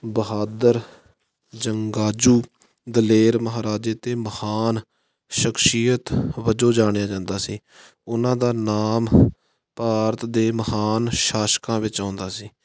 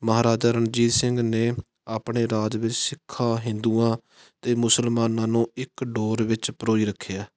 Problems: background sounds at intervals